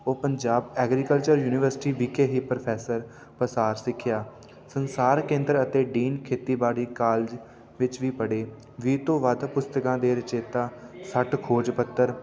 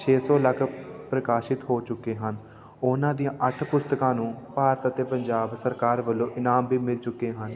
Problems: constant background noise, continuous background conversations